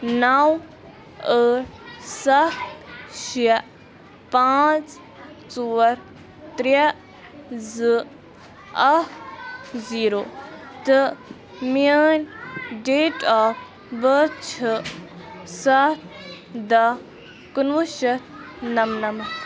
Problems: constant background noise